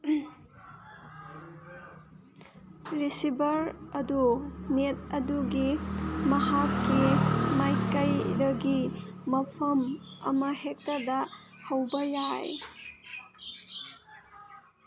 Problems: background sounds at intervals